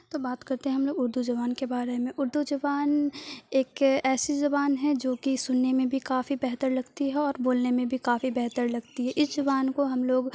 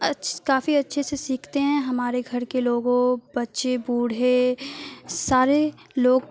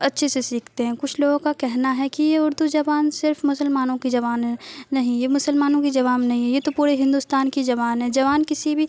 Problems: constant background noise